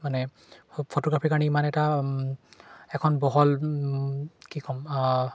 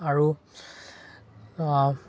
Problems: constant background noise